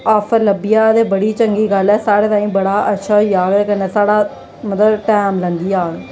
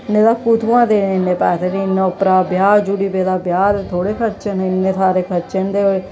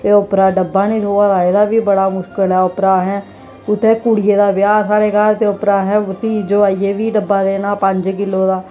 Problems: none marked